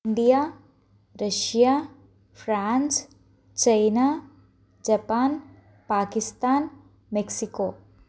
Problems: constant background noise